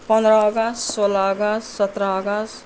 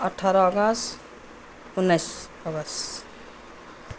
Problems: none marked